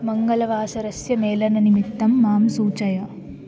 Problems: constant background noise